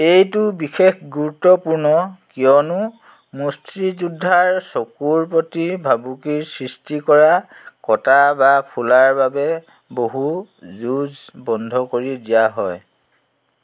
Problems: constant background noise